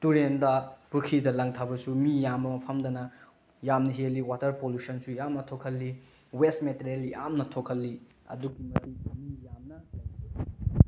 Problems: background sounds at intervals